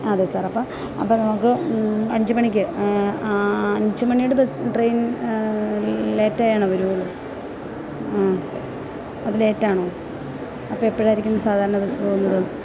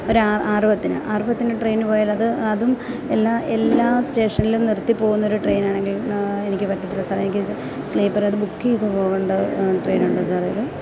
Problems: constant background noise